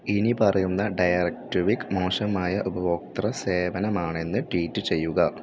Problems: background sounds at intervals